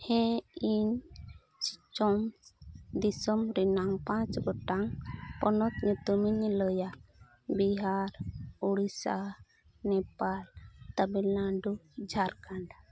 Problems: background sounds at intervals